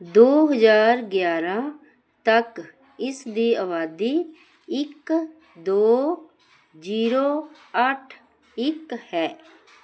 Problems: none marked